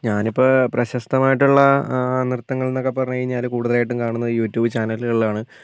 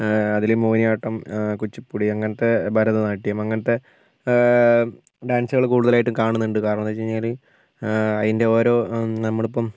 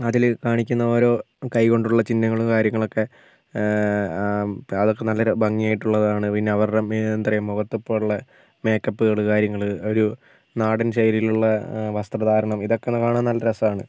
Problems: constant background noise